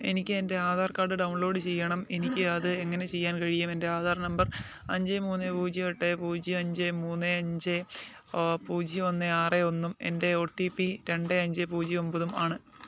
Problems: none marked